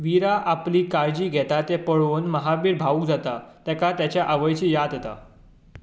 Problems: none marked